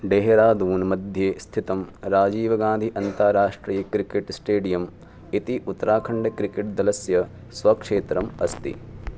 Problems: background sounds at intervals